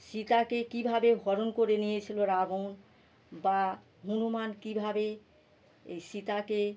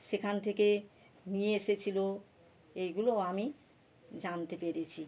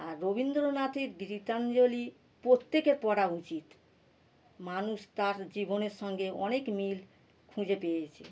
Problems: none marked